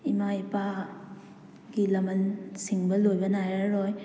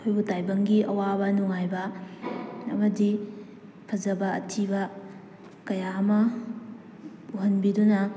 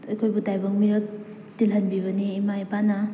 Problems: background sounds at intervals